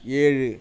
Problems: none marked